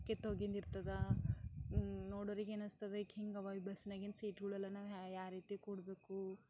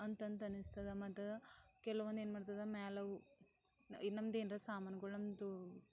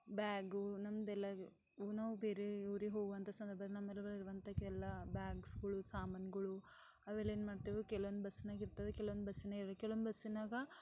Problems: none marked